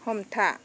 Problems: constant background noise